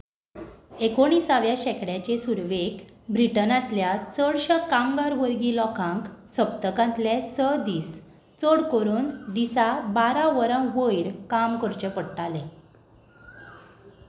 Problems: background sounds at intervals